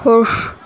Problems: none marked